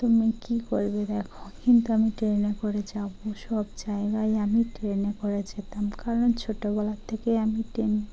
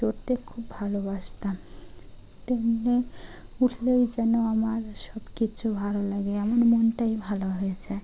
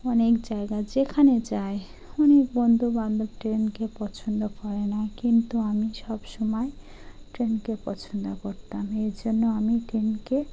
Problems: constant background noise